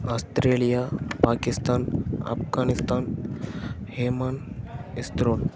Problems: background sounds at intervals